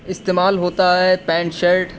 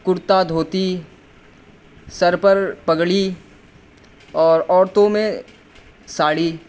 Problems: constant background noise